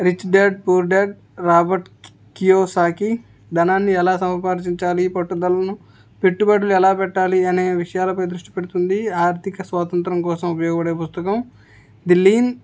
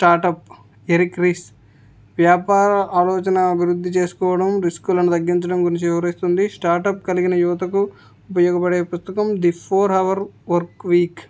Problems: background sounds at intervals